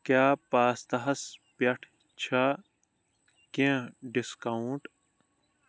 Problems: background sounds at intervals